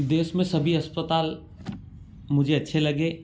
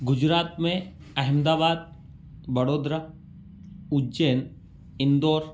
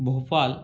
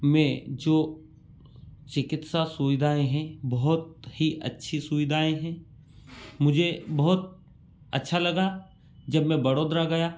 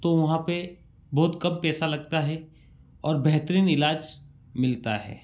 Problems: none marked